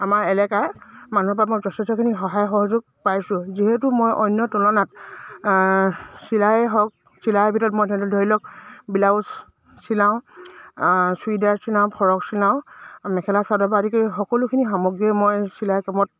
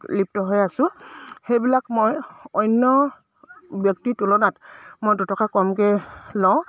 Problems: low volume